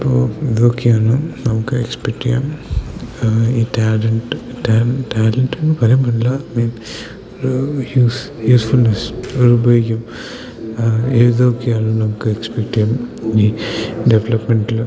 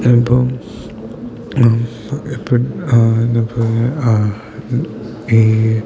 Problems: constant background noise